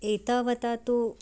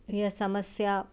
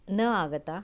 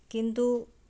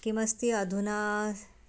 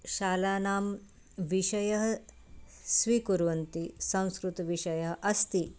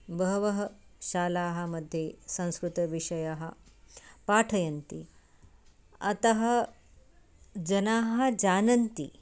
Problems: background sounds at intervals